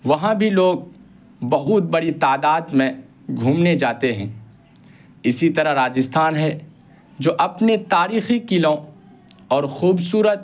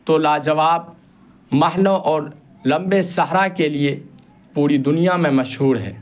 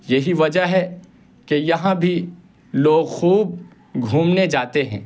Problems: constant background noise